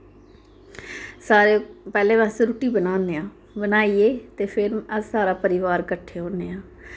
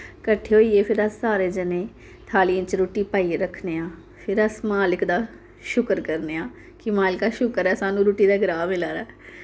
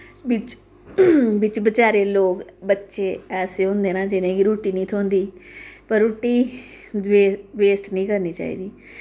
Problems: none marked